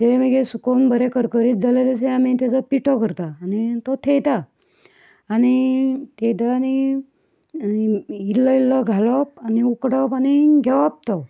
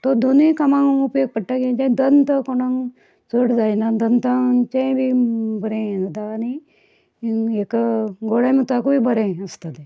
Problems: none marked